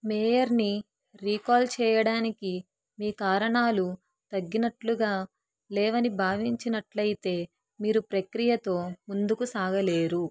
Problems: none marked